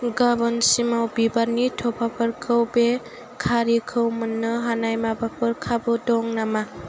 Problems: constant background noise